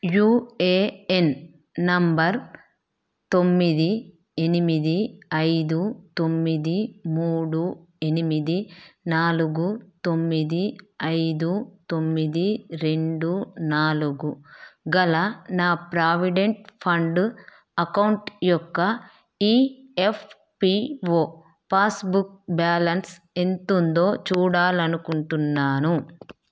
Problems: none marked